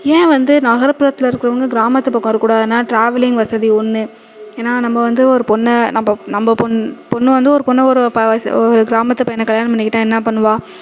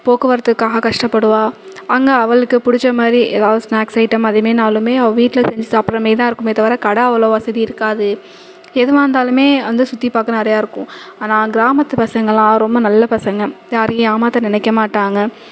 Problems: constant background noise